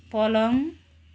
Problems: none marked